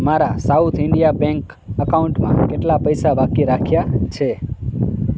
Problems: background sounds at intervals